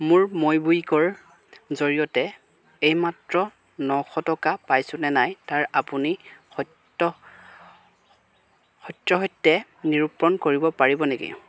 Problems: none marked